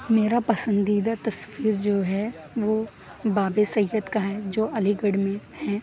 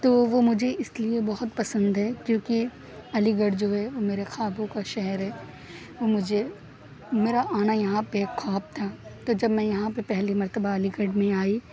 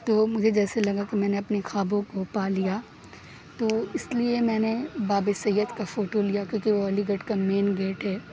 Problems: none marked